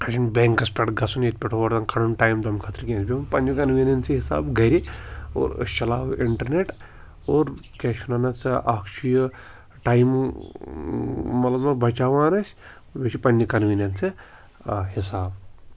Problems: constant background noise